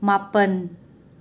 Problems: none marked